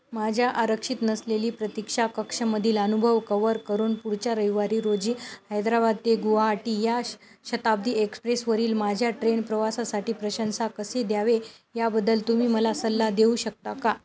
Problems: none marked